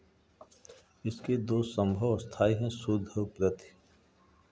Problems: background sounds at intervals